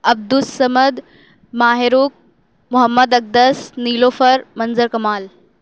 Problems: none marked